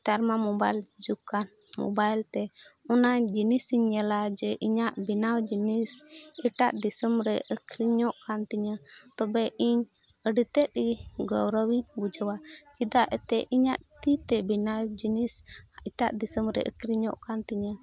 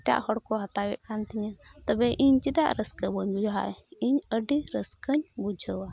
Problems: background conversations at intervals